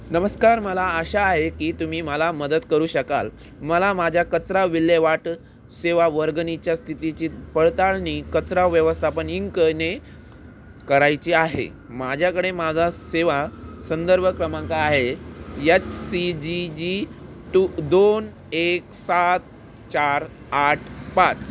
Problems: constant background noise